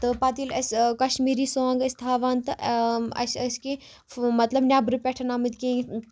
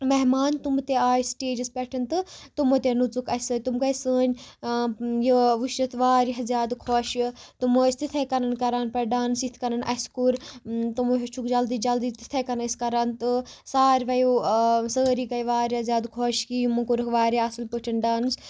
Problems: background sounds at intervals